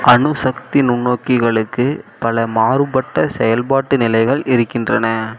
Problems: constant background noise